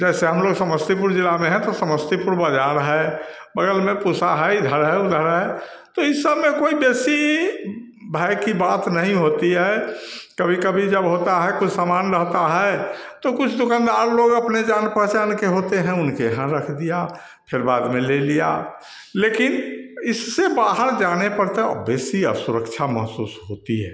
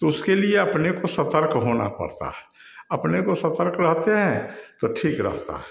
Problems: none marked